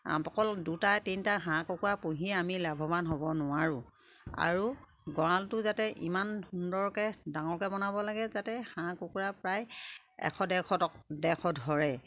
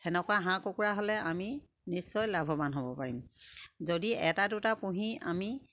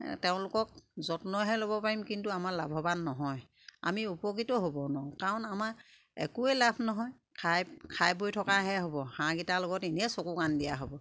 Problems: constant background noise, background conversations at intervals